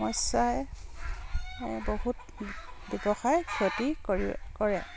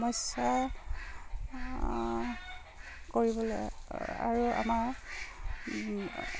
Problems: constant background noise